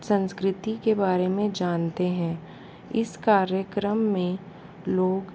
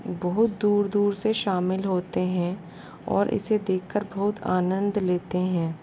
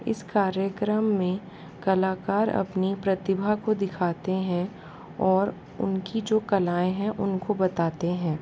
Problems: constant background noise